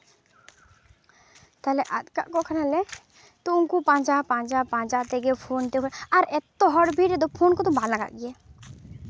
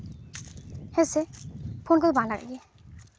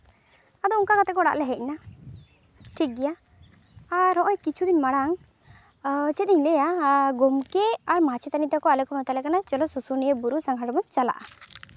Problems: background sounds at intervals